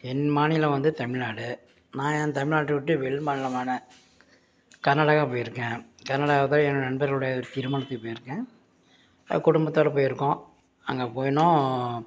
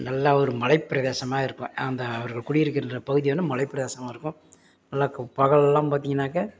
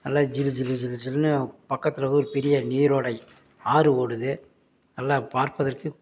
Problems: background sounds at intervals